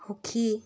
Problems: background sounds at intervals